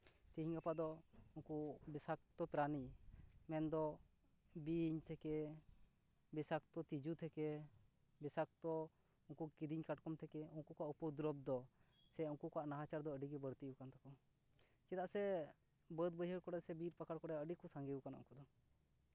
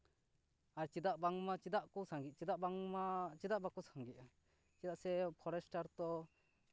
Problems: none marked